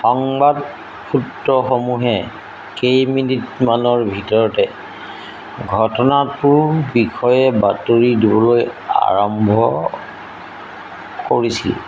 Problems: constant background noise